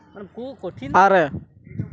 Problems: background conversations at intervals